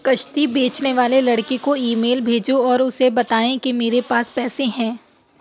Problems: none marked